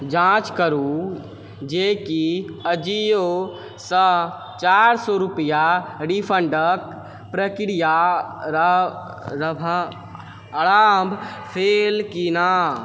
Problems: background sounds at intervals